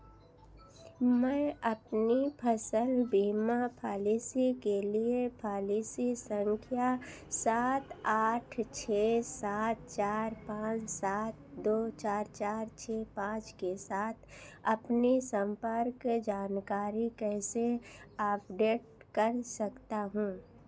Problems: none marked